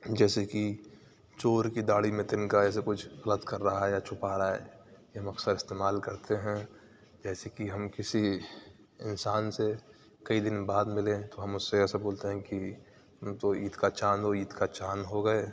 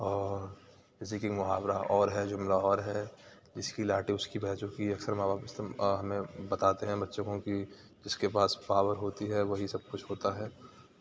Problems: none marked